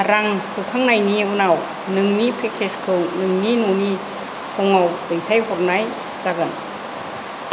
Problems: constant background noise